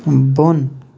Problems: constant background noise